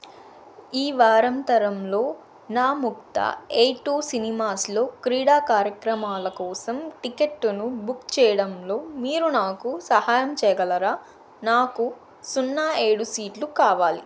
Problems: constant background noise